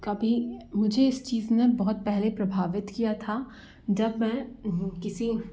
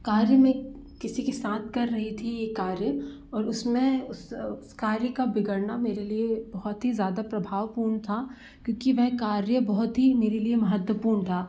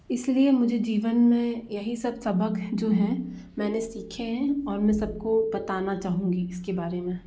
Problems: background sounds at intervals